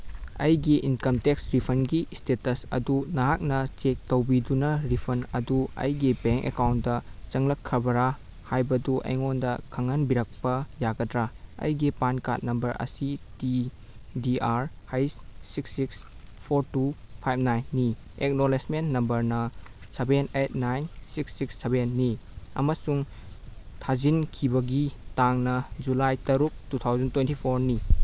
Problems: background sounds at intervals